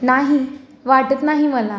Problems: background conversations at intervals